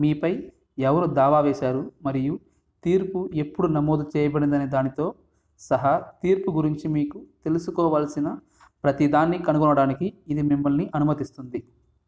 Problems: background sounds at intervals